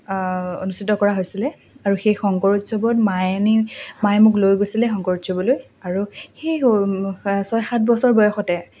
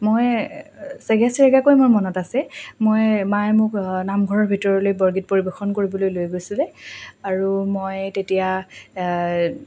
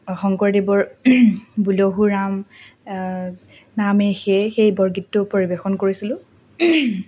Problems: background sounds at intervals